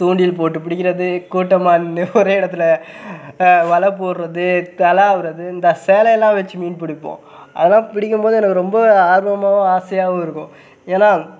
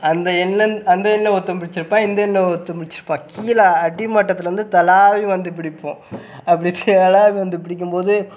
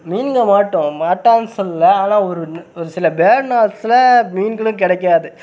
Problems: background sounds at intervals